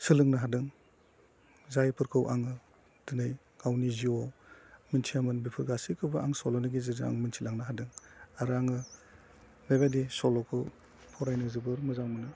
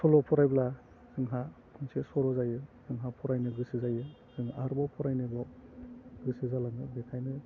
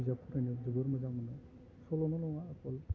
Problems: low volume